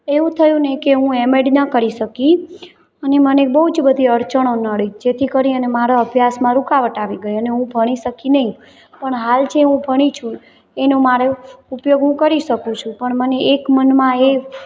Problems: constant background noise, background conversations at intervals